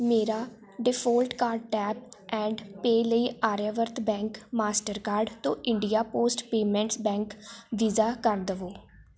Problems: none marked